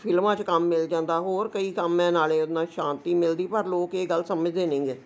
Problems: none marked